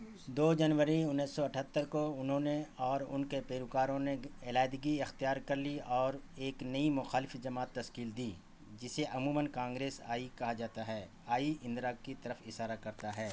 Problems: constant background noise